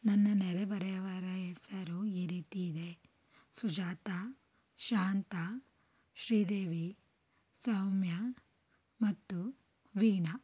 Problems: low volume